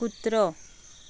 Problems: background sounds at intervals